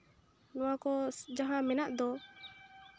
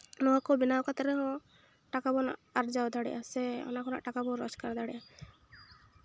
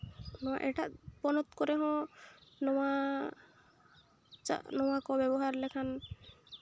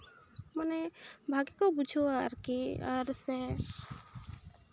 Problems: none marked